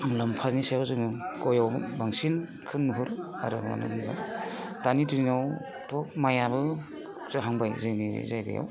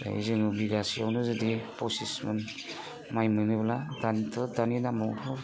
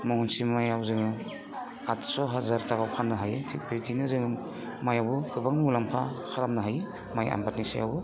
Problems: constant background noise